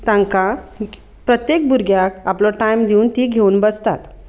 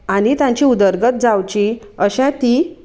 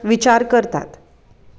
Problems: none marked